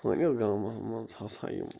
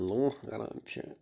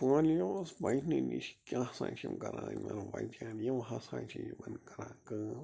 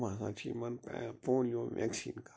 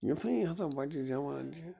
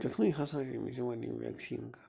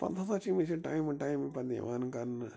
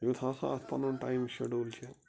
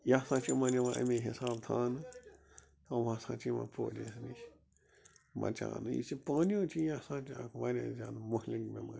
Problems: constant background noise